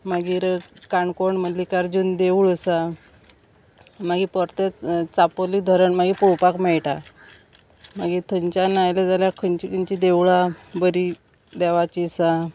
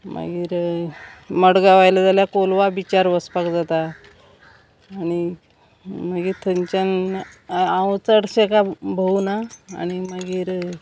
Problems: constant background noise